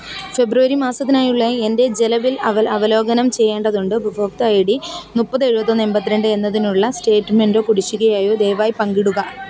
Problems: continuous background conversations